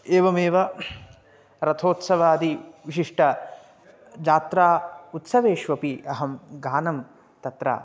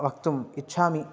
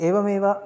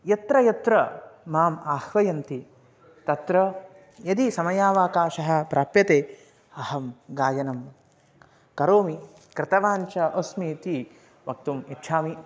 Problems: background conversations at intervals